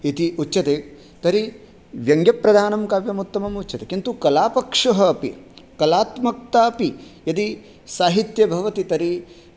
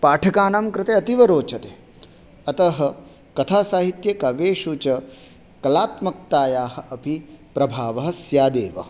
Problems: none marked